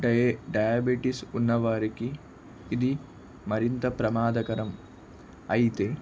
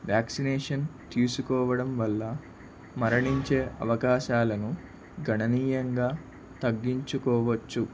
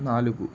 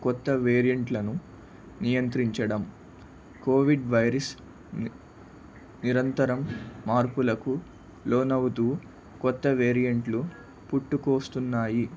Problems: none marked